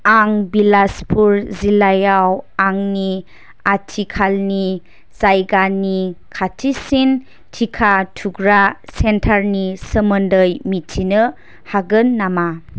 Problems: constant background noise